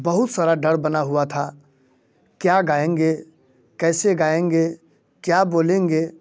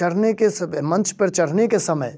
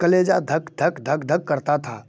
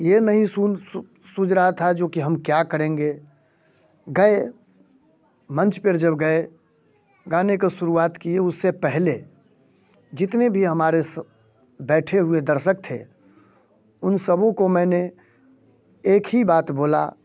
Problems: constant background noise